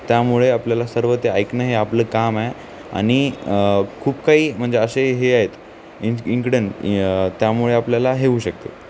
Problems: none marked